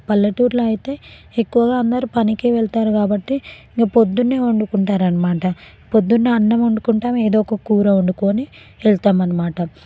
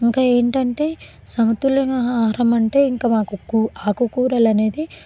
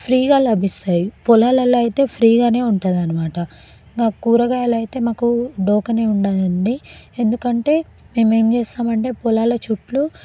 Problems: background conversations at intervals